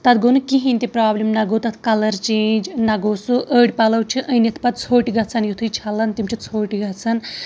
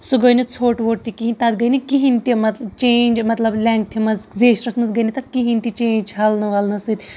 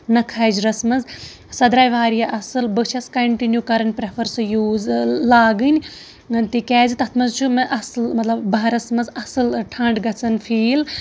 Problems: constant background noise